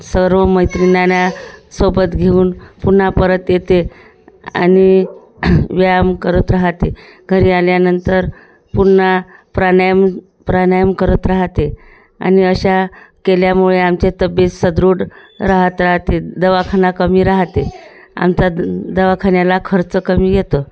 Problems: none marked